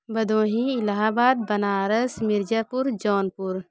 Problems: background conversations at intervals